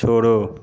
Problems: constant background noise